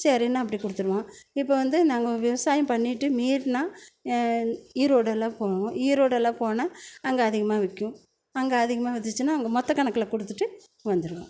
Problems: none marked